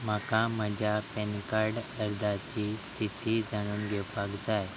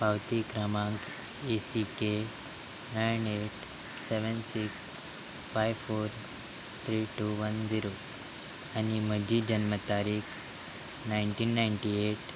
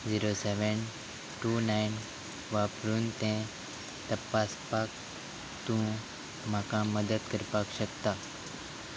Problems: constant background noise